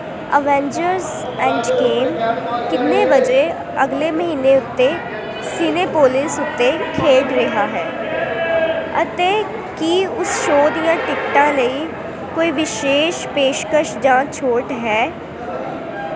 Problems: constant background noise, continuous background conversations